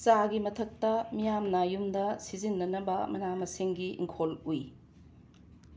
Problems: background sounds at intervals